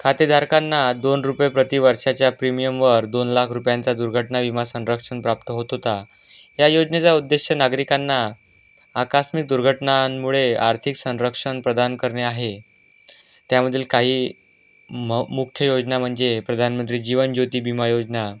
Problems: constant background noise